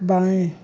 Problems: none marked